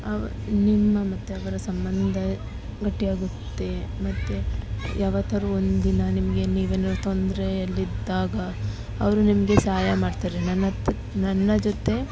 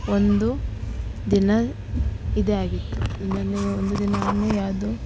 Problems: constant background noise